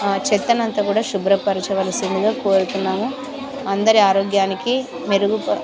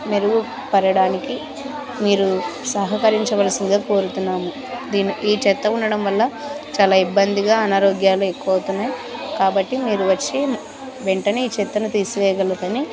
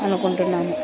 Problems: constant background noise